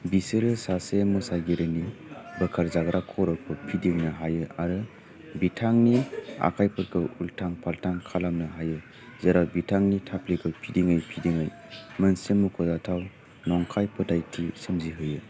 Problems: low volume